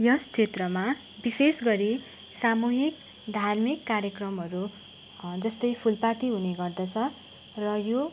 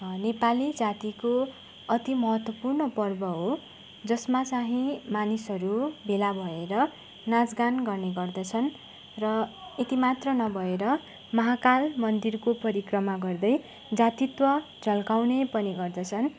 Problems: constant background noise